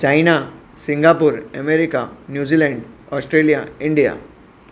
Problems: constant background noise